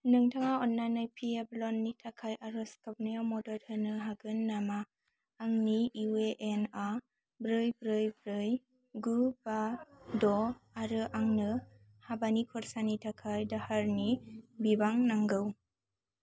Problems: none marked